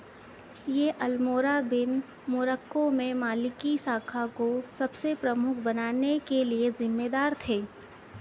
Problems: none marked